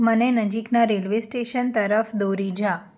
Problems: none marked